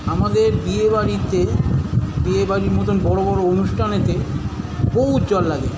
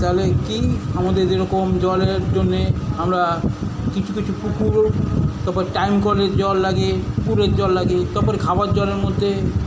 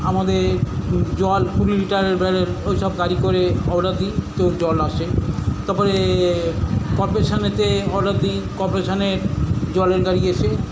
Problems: none marked